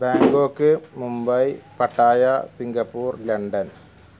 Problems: background sounds at intervals